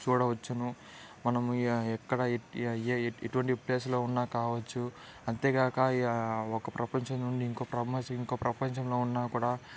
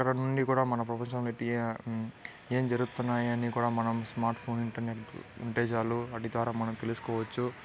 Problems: background conversations at intervals